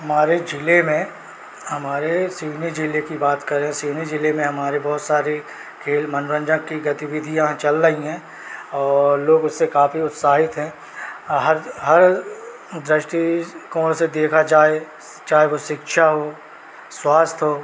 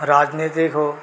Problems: none marked